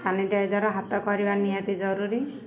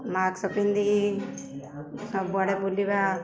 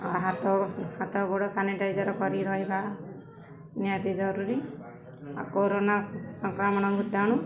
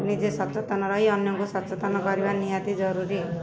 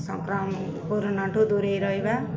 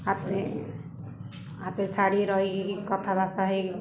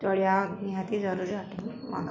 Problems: constant background noise, continuous background conversations